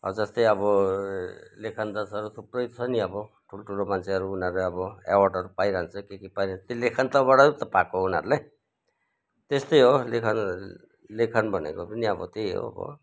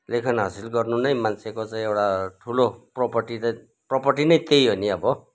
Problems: background sounds at intervals, background conversations at intervals